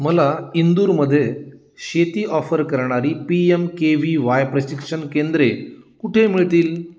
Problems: none marked